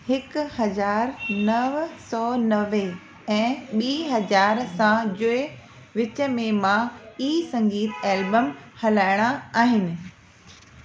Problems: constant background noise, echo